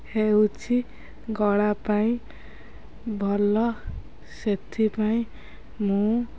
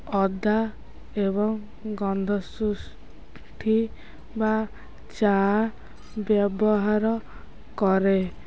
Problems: constant background noise, continuous background conversations